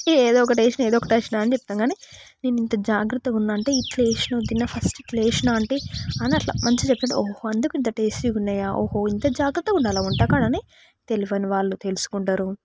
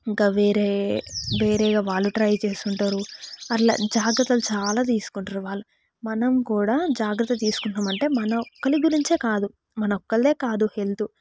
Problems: background sounds at intervals, background conversations at intervals